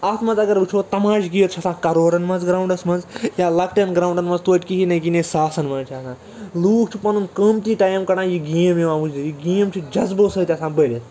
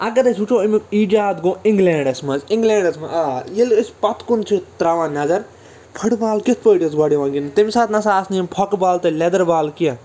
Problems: constant background noise, continuous background conversations